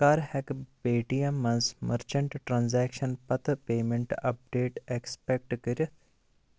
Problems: none marked